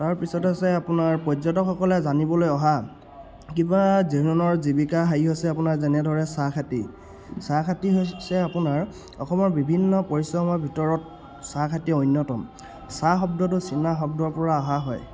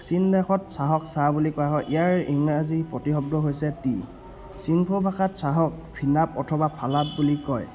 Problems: background sounds at intervals